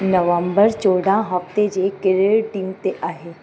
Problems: constant background noise, echo